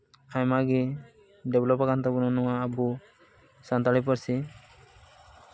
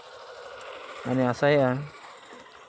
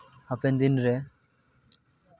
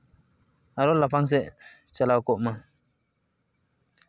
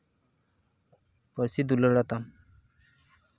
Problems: background sounds at intervals